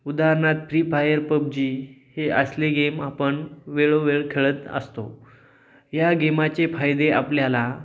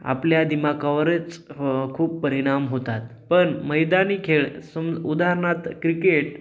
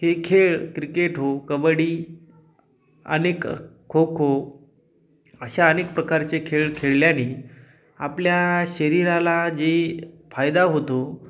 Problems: background sounds at intervals